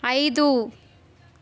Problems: none marked